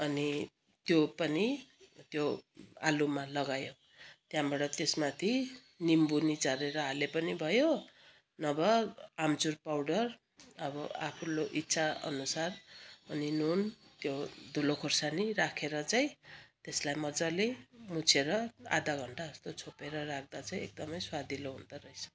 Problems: none marked